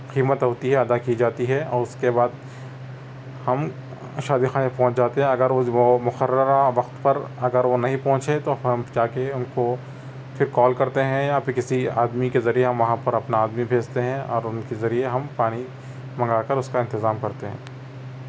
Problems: background sounds at intervals